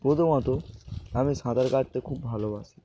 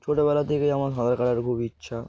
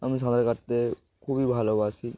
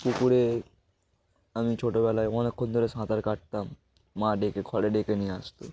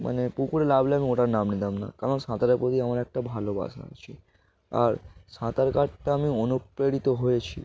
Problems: none marked